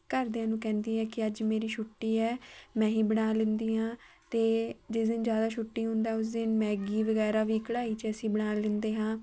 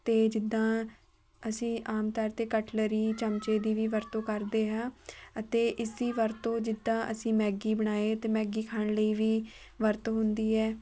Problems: none marked